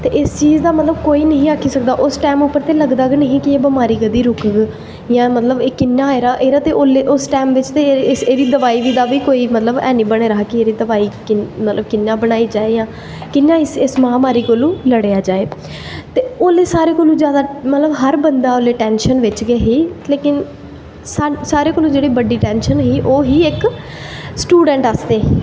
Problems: constant background noise, echo